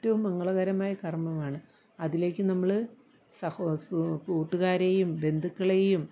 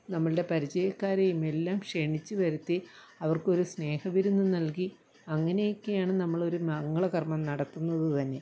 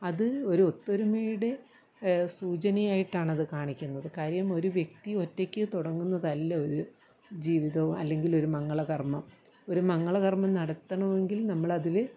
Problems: low volume